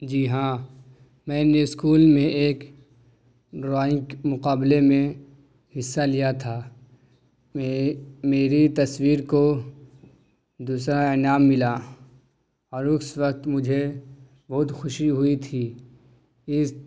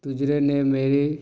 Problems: none marked